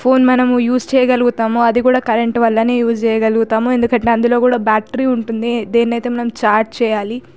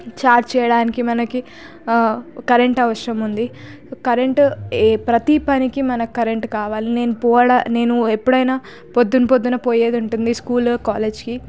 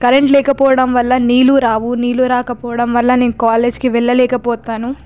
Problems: constant background noise